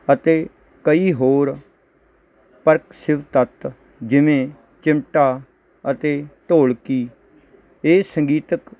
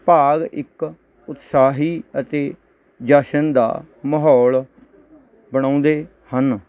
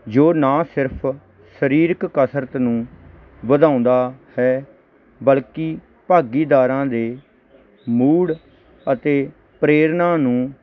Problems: none marked